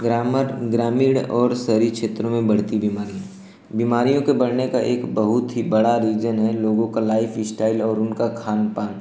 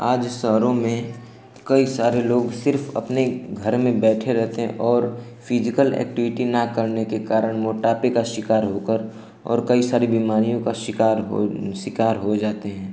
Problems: constant background noise